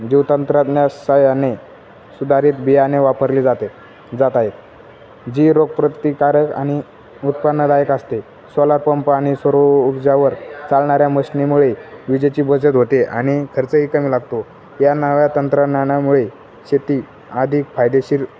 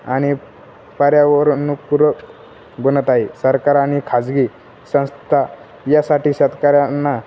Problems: none marked